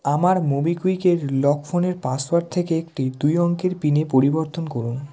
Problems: background conversations at intervals